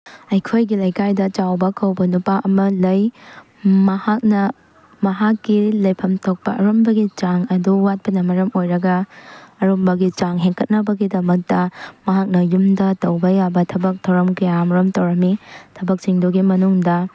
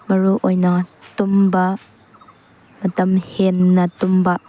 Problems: none marked